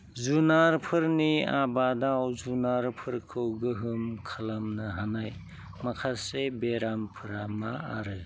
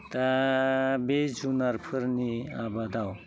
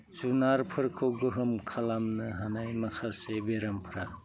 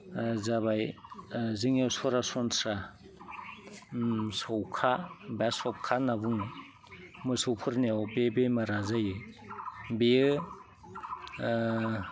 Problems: low volume